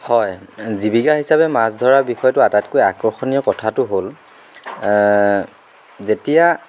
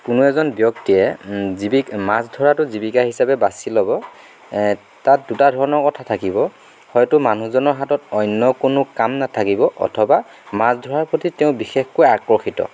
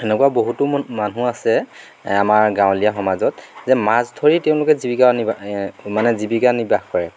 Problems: background sounds at intervals